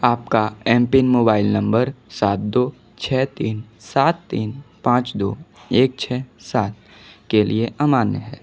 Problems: none marked